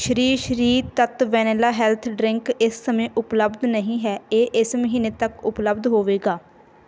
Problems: background sounds at intervals